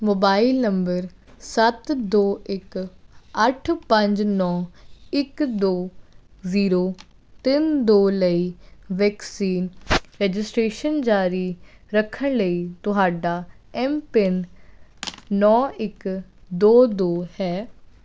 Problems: none marked